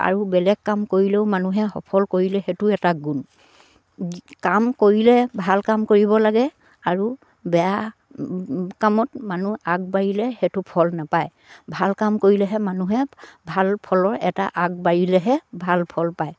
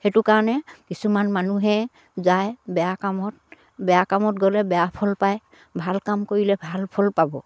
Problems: none marked